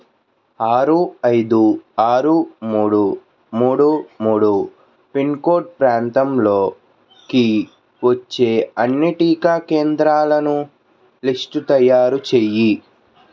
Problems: constant background noise